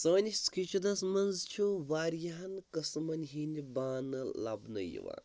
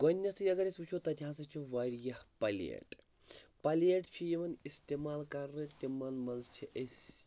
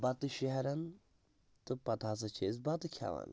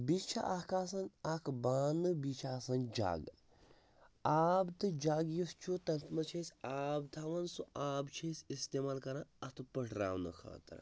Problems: none marked